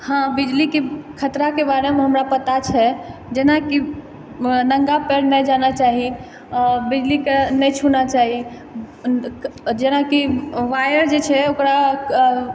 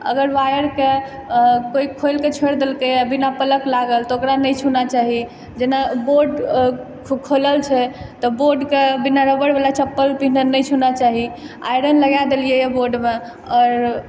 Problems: background conversations at intervals